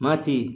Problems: none marked